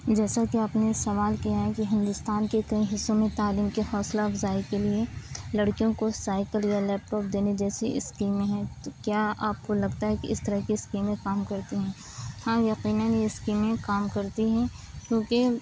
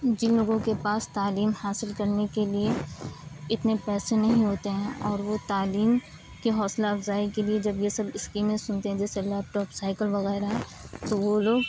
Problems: constant background noise, low volume